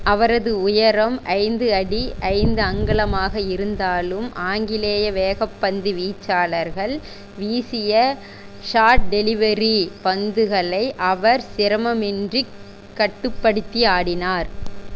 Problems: constant background noise